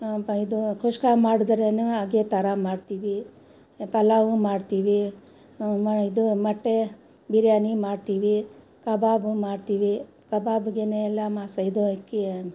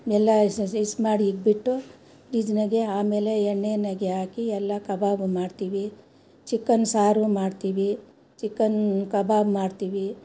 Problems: background sounds at intervals